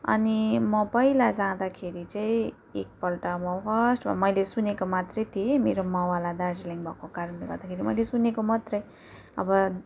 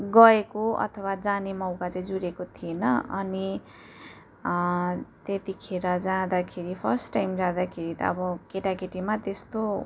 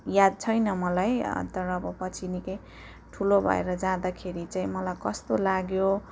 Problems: background sounds at intervals